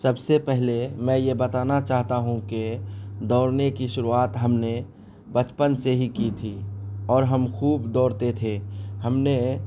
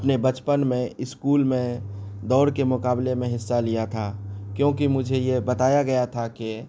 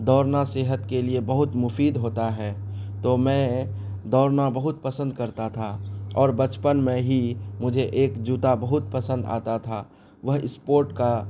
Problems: none marked